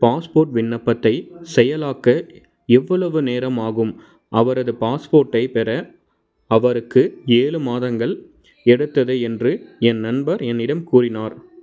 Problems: background sounds at intervals